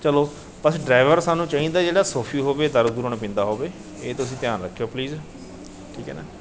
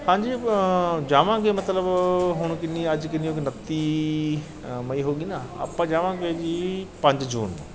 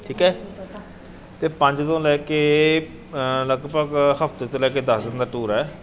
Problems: none marked